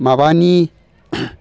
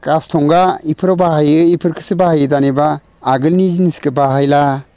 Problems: constant background noise